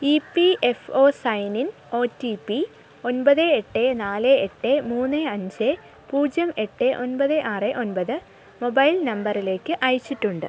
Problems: none marked